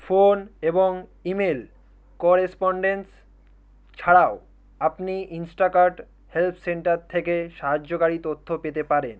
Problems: none marked